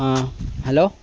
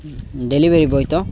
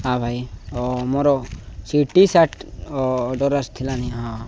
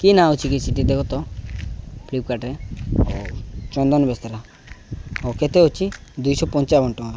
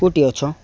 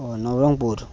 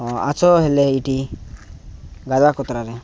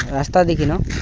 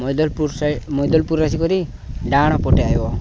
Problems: background sounds at intervals